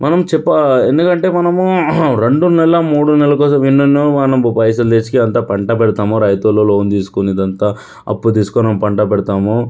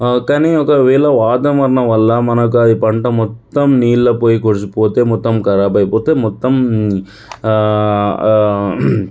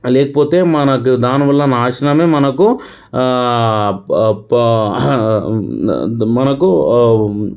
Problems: none marked